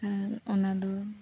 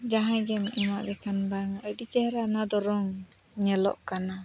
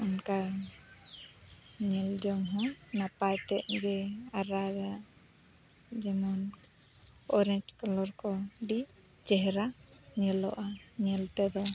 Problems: none marked